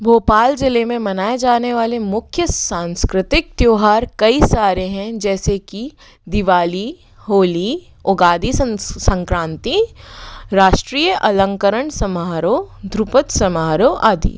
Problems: none marked